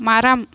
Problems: none marked